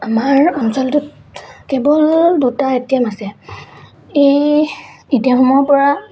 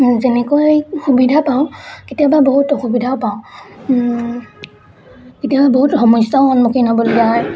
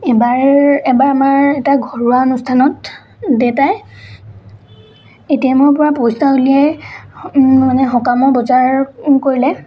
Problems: background sounds at intervals, background conversations at intervals